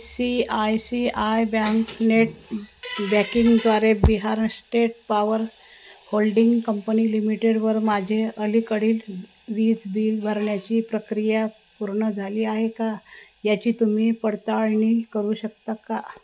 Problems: none marked